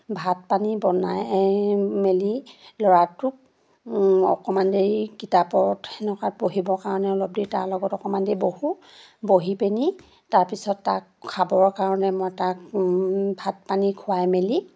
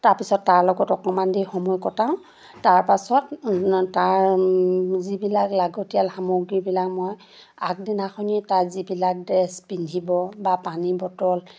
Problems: none marked